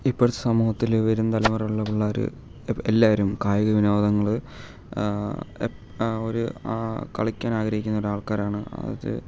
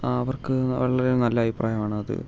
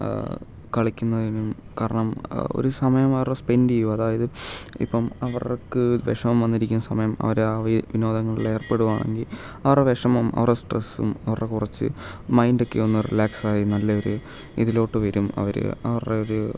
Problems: background sounds at intervals